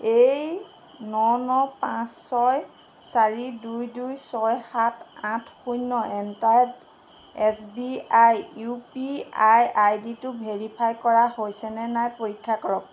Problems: constant background noise